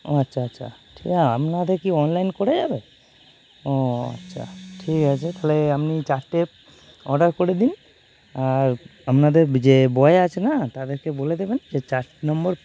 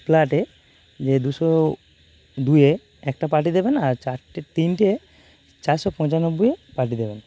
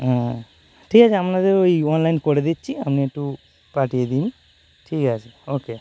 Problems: constant background noise